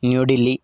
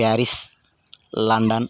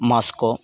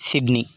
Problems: background conversations at intervals